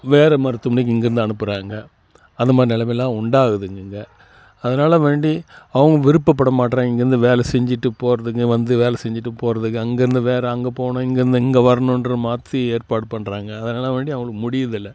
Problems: constant background noise